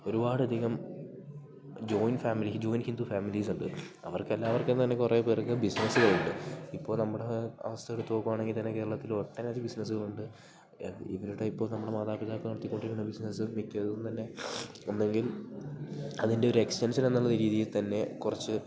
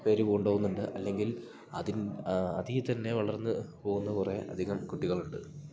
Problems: background sounds at intervals